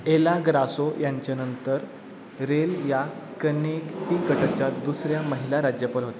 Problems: constant background noise